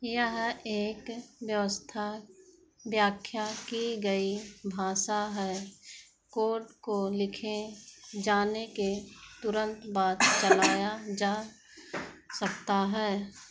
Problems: background sounds at intervals